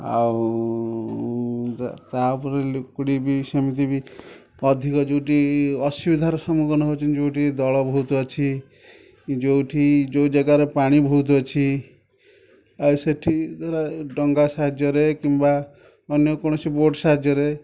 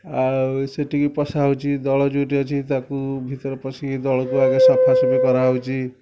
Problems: background sounds at intervals